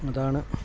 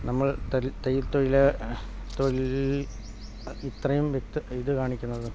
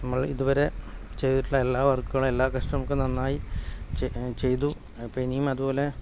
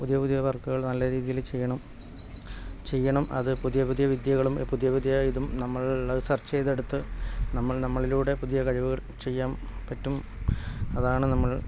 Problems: background sounds at intervals, low volume